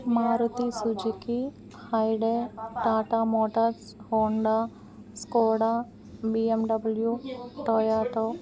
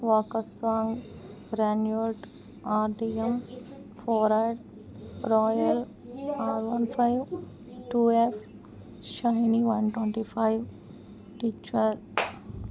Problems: background conversations at intervals